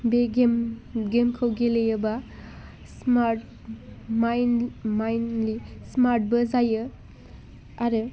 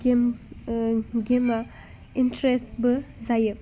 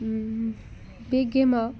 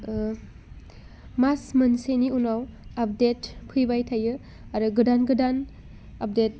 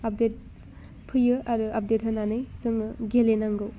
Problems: constant background noise